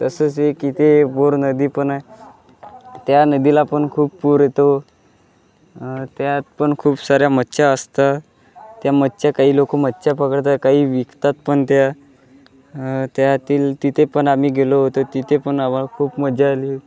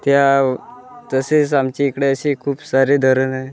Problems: constant background noise, continuous background conversations